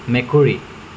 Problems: constant background noise